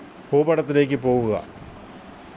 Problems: constant background noise